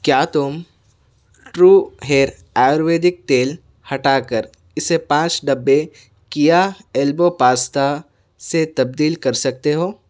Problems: none marked